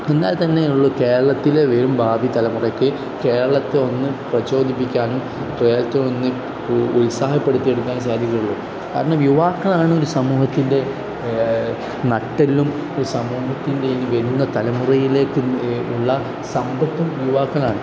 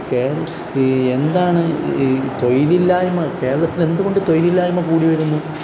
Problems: constant background noise